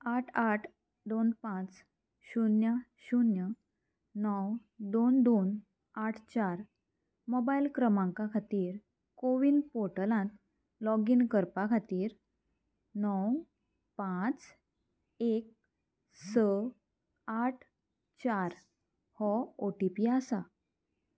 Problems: constant background noise